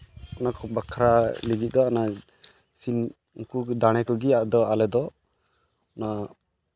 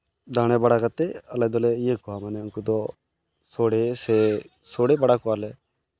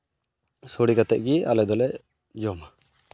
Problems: background sounds at intervals, background conversations at intervals